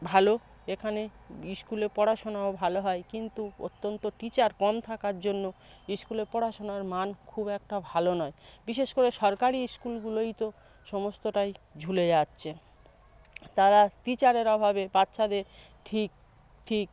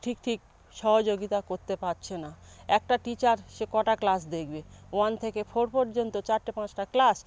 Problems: none marked